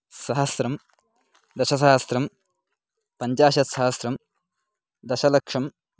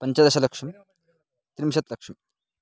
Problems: background conversations at intervals